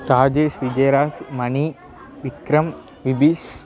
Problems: continuous background conversations